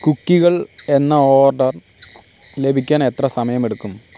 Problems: constant background noise